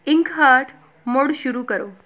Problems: background conversations at intervals